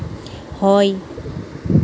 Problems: constant background noise